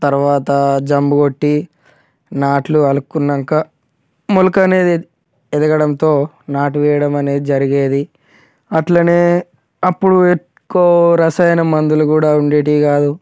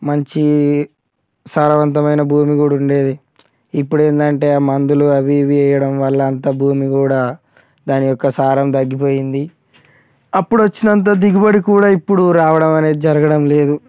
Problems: none marked